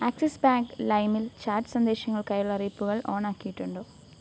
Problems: low volume